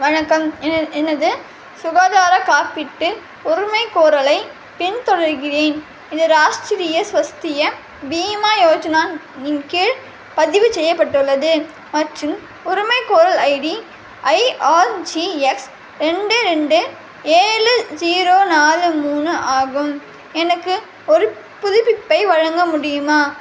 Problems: constant background noise